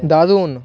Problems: background conversations at intervals